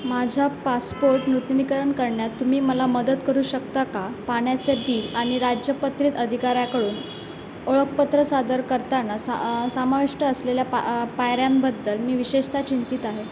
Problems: constant background noise